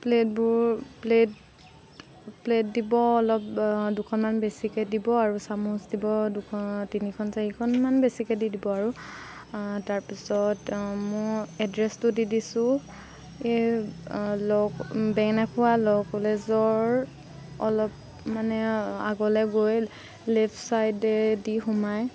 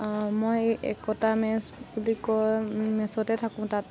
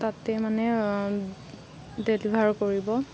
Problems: constant background noise